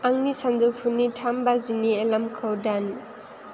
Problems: none marked